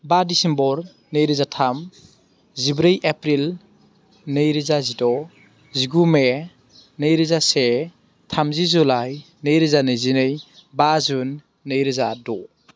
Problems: constant background noise